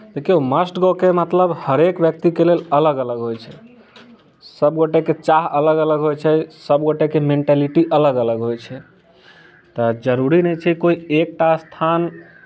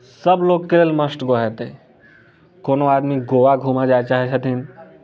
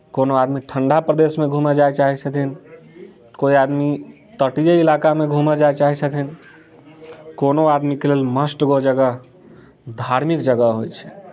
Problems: none marked